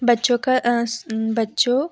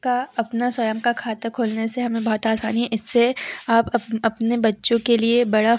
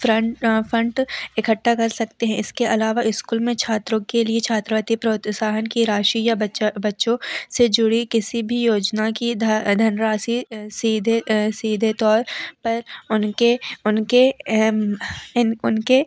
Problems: none marked